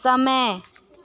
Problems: constant background noise